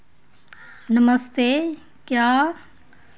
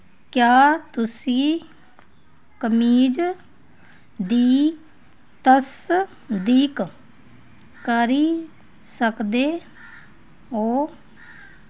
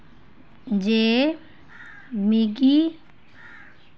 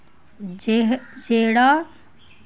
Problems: none marked